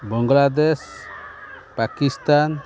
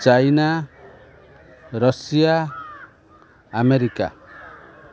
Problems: constant background noise